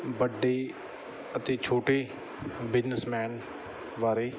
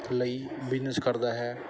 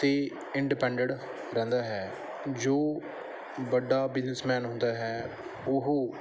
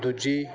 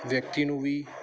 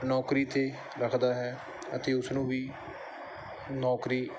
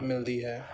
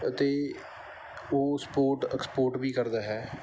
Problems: background sounds at intervals